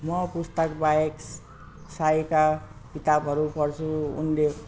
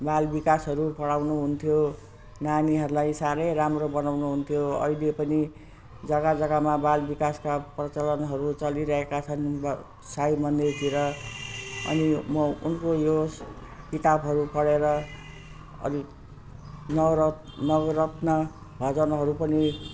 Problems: constant background noise